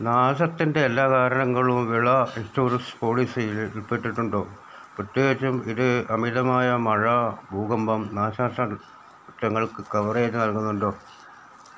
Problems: none marked